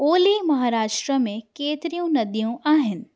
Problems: none marked